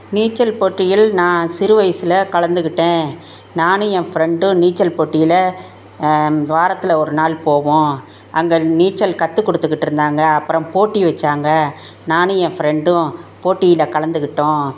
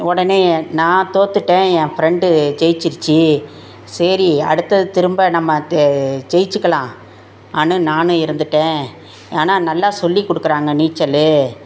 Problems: none marked